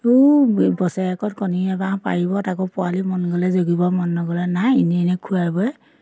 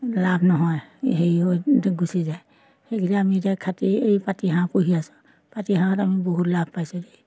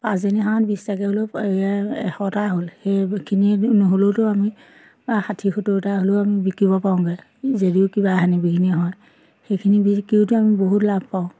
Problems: constant background noise